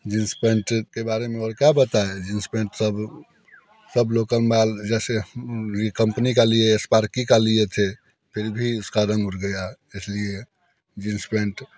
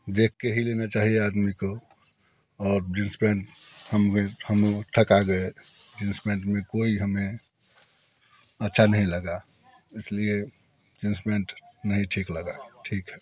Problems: none marked